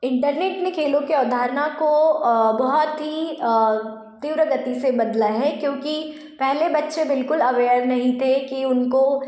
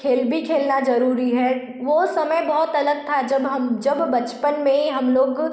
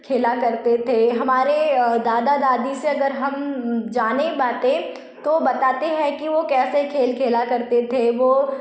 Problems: none marked